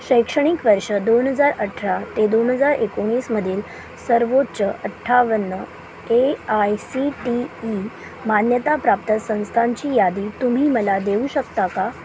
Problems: none marked